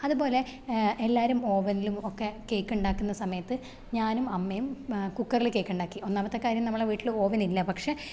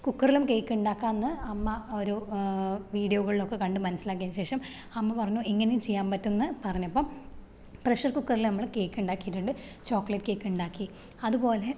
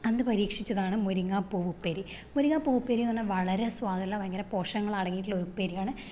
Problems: none marked